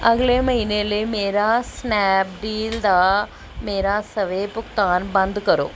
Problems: none marked